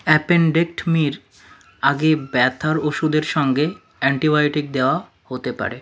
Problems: background sounds at intervals